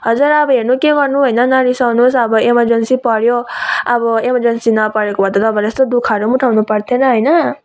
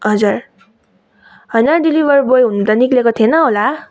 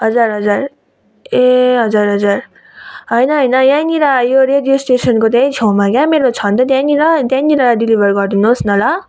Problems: none marked